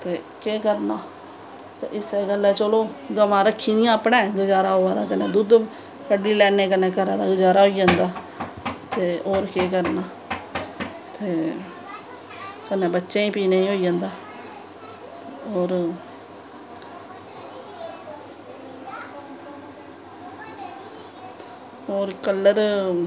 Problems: none marked